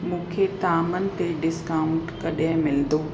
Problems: constant background noise, echo